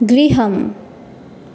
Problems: none marked